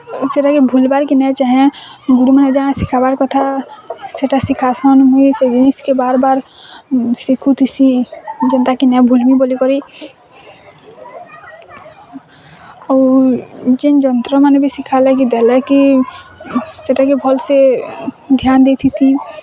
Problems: constant background noise, continuous background conversations